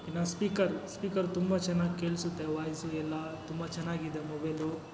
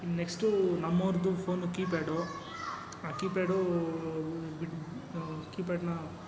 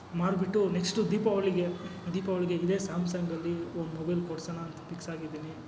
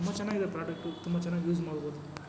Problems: constant background noise